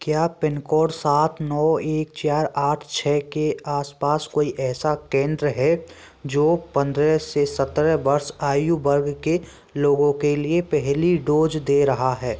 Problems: none marked